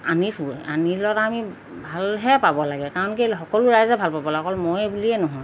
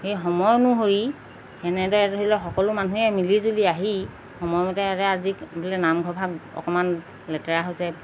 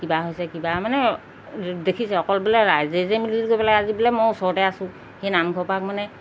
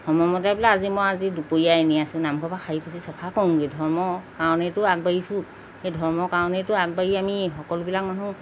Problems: background sounds at intervals